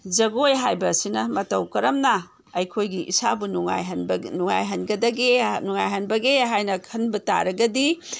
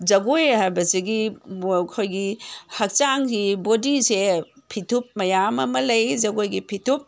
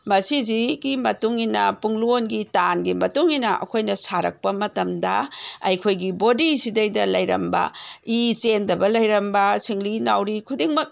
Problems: none marked